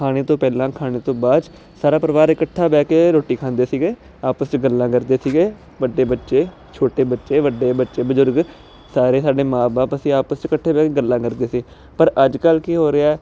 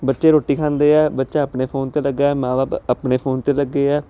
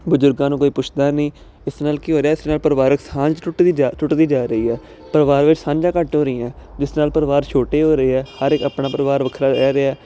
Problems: constant background noise